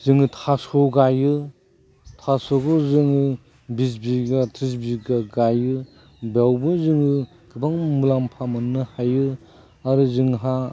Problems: background sounds at intervals